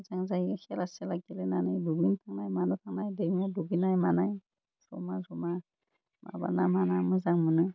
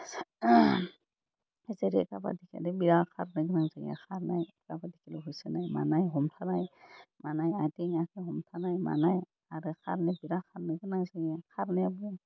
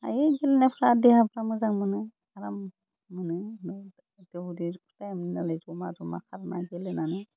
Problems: none marked